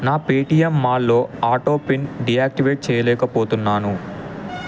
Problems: constant background noise